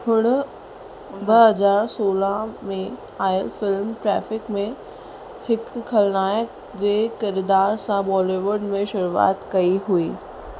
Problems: constant background noise